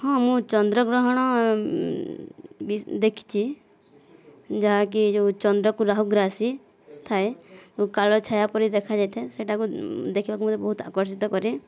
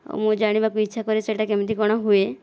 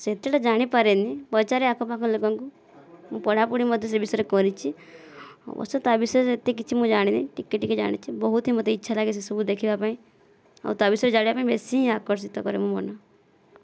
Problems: background sounds at intervals